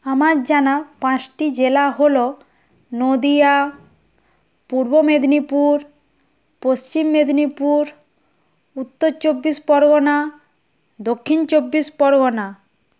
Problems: constant background noise